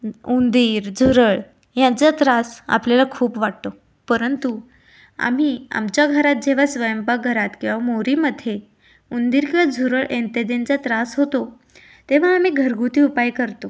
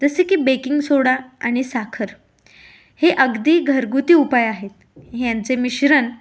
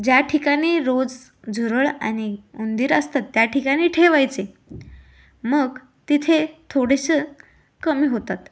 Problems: none marked